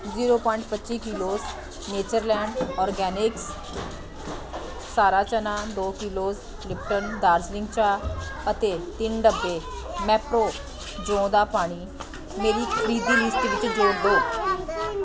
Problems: continuous background conversations